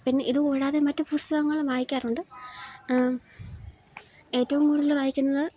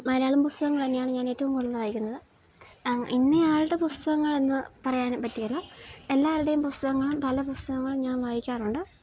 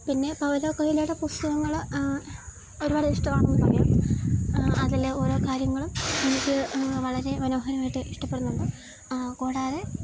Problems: none marked